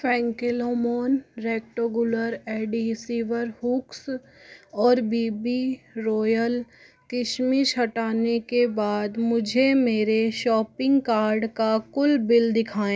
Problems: constant background noise